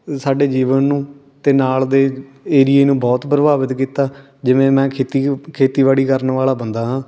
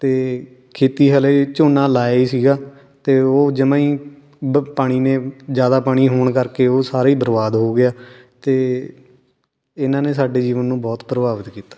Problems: none marked